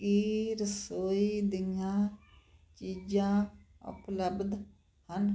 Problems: constant background noise